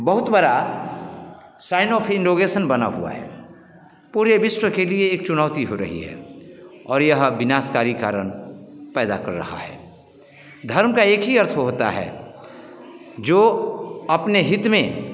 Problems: none marked